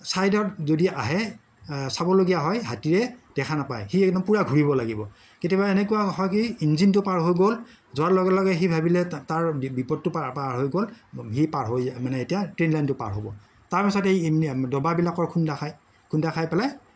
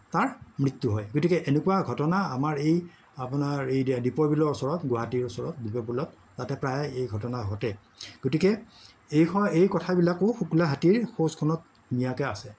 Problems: background sounds at intervals, background conversations at intervals